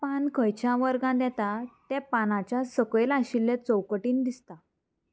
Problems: constant background noise